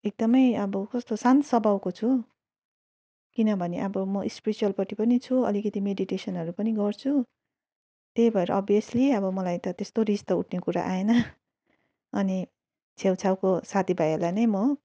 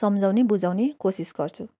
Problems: none marked